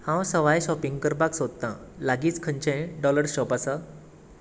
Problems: constant background noise